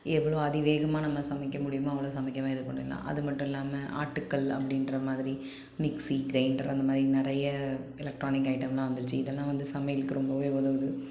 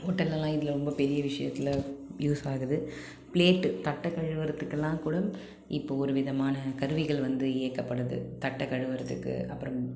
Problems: none marked